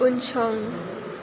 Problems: constant background noise